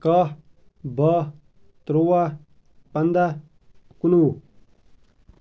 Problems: none marked